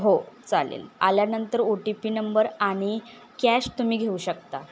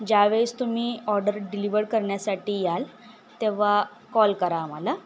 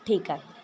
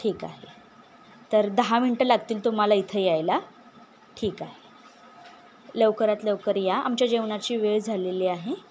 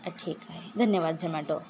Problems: constant background noise